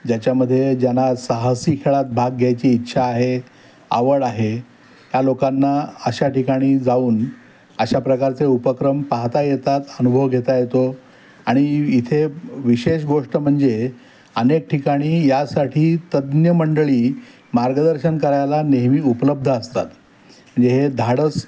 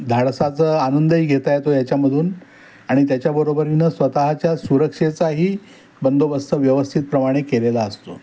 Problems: constant background noise